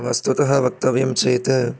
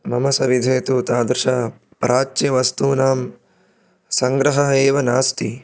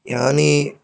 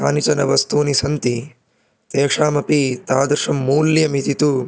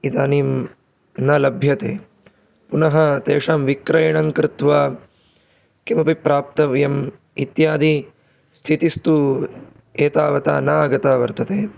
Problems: none marked